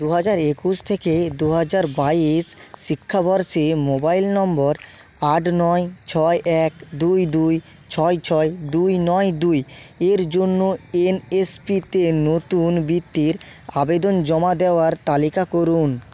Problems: none marked